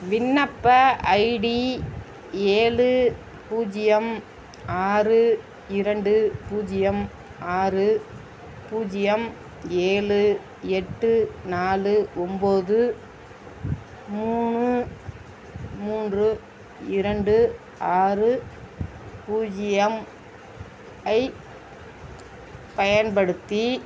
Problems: constant background noise, background conversations at intervals